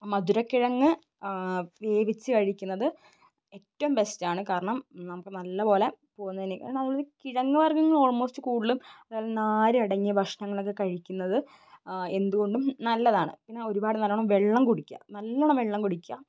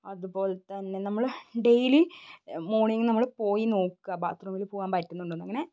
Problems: background sounds at intervals